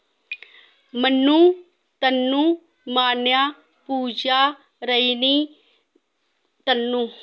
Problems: none marked